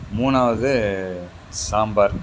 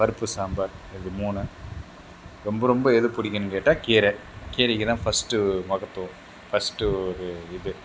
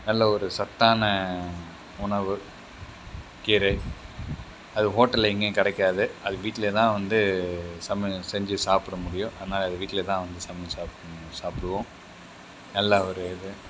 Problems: background sounds at intervals